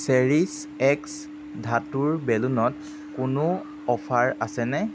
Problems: constant background noise